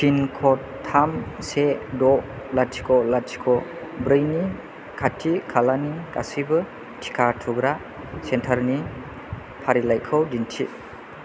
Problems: none marked